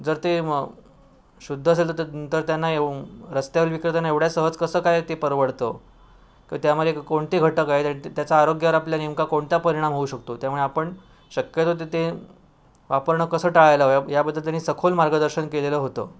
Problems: background sounds at intervals